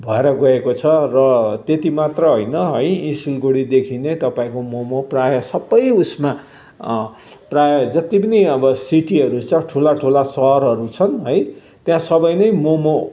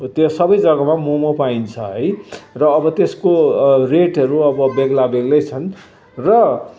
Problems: none marked